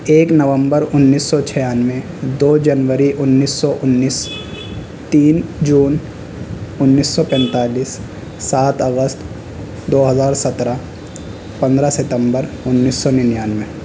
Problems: constant background noise